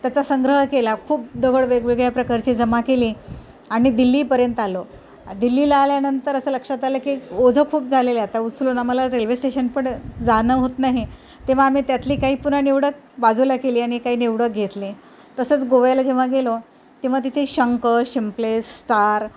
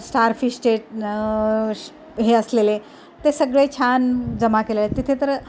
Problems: none marked